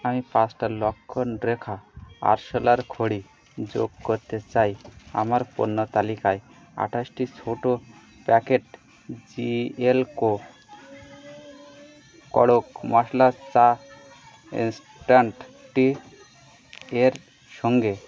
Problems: constant background noise, continuous background conversations